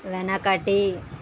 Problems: constant background noise